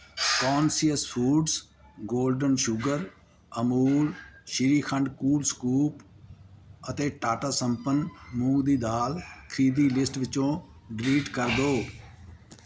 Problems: constant background noise